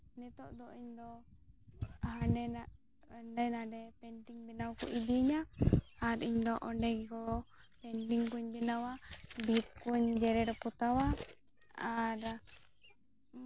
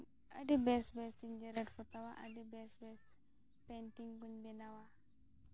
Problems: background sounds at intervals, low volume